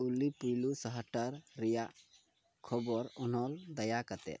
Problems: low volume